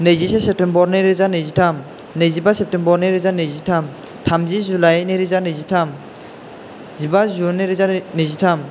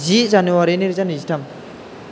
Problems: none marked